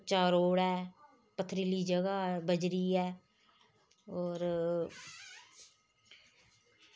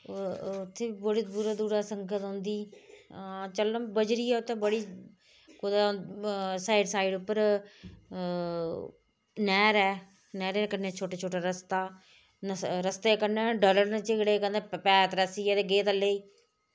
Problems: none marked